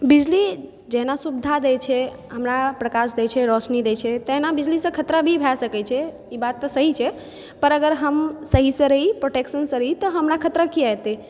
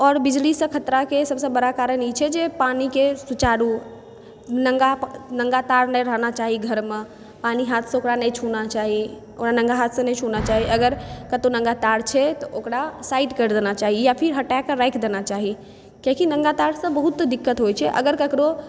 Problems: background sounds at intervals